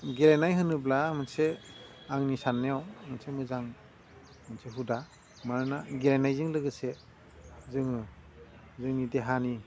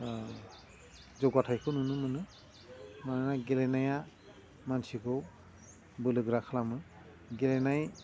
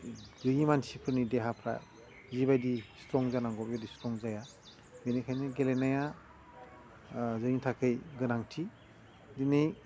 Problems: low volume